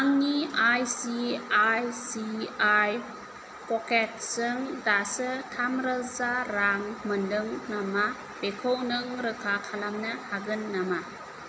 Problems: constant background noise